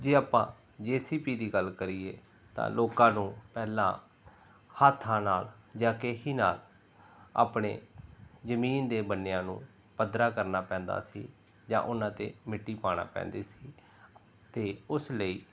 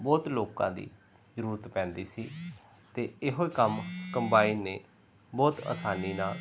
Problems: background sounds at intervals